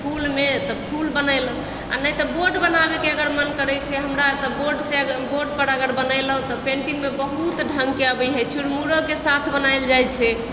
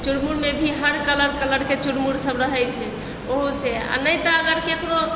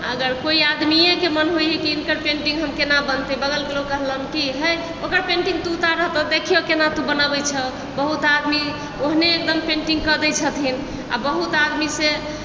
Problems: background sounds at intervals